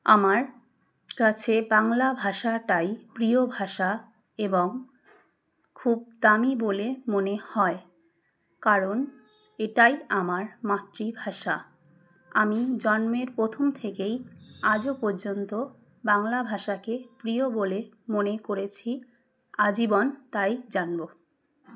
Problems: background sounds at intervals